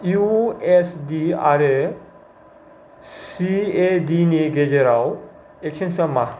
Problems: low volume